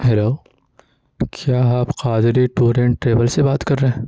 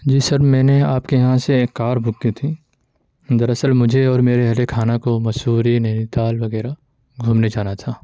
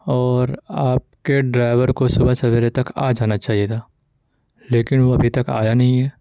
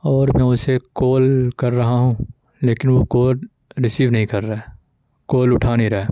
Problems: constant background noise